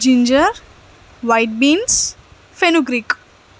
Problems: constant background noise